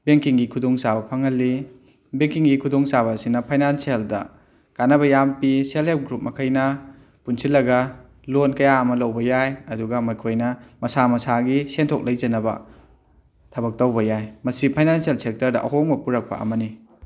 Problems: none marked